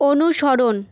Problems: constant background noise